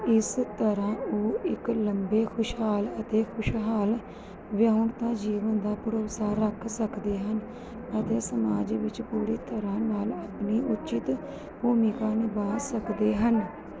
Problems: background sounds at intervals